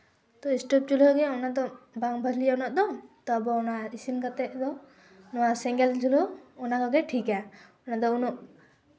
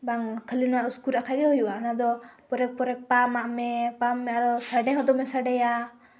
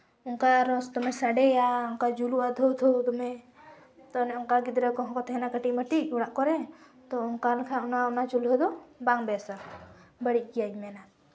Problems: background sounds at intervals, background conversations at intervals